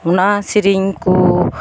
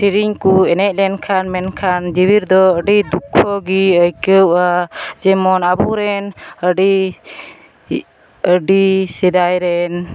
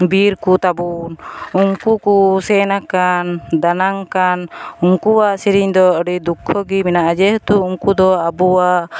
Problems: constant background noise